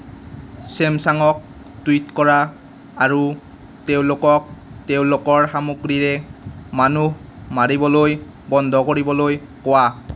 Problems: none marked